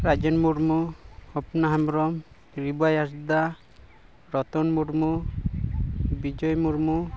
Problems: background sounds at intervals